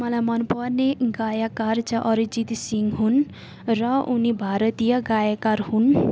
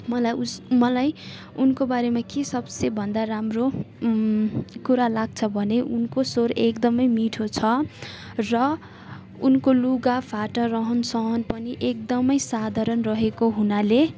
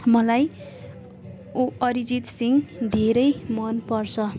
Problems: constant background noise, continuous background conversations